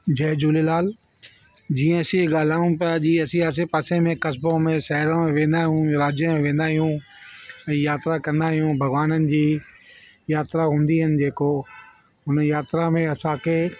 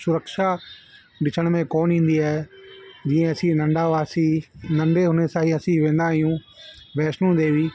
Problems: constant background noise